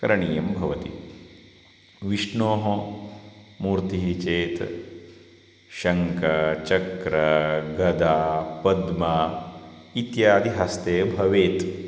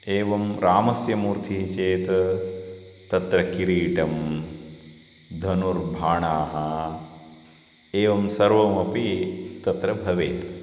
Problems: constant background noise